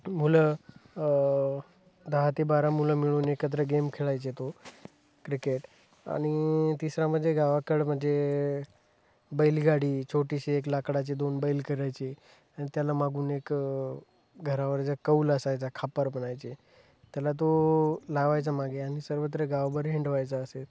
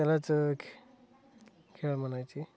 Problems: none marked